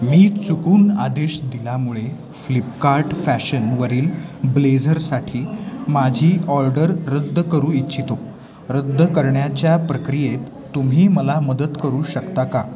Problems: constant background noise, continuous background conversations, echo